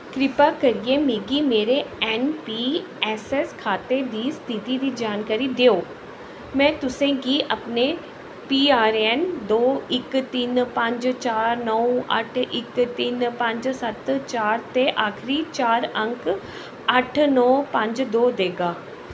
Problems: constant background noise, echo